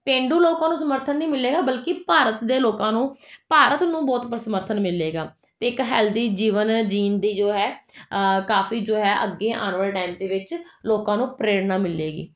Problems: none marked